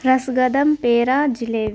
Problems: constant background noise